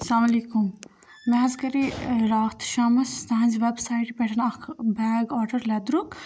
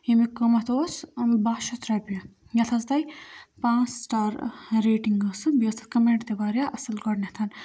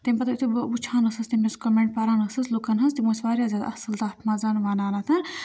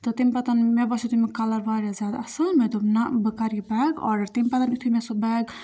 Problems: background sounds at intervals